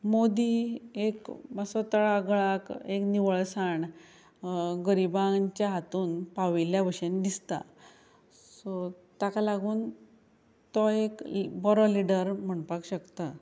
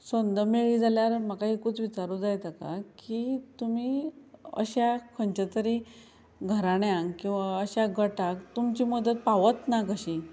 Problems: none marked